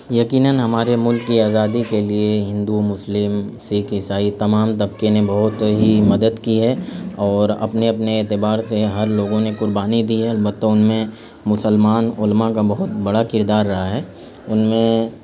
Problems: constant background noise